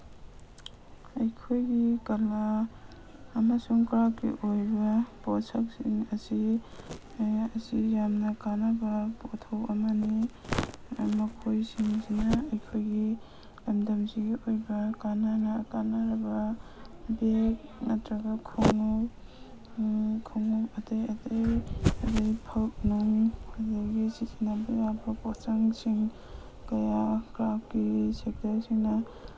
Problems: background sounds at intervals